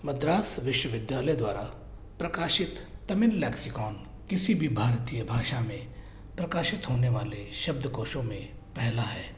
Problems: low volume